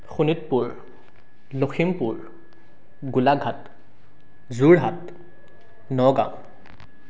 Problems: none marked